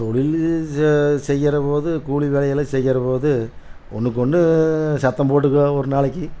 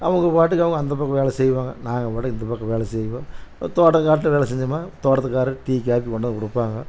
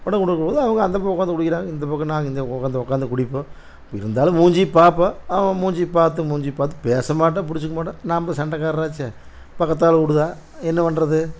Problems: constant background noise